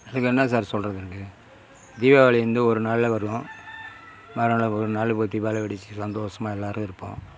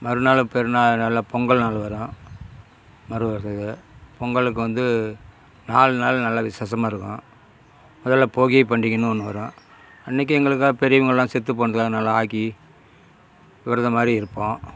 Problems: none marked